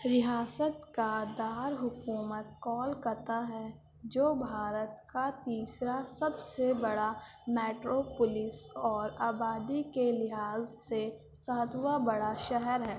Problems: constant background noise